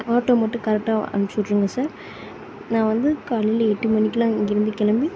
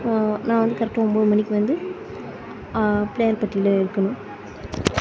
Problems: background conversations at intervals